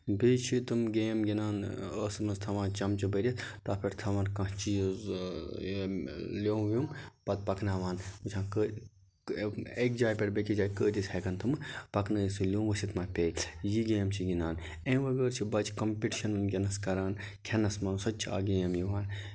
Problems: constant background noise